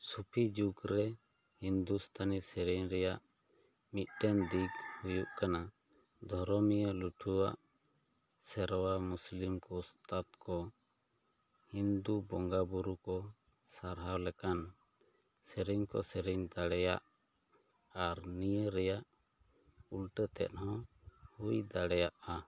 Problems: none marked